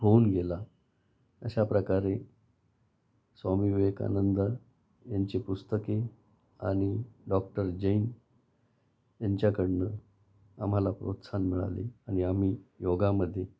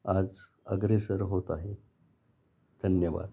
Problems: background sounds at intervals